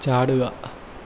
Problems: none marked